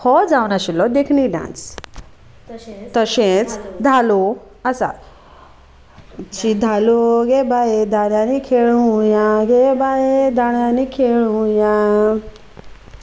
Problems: none marked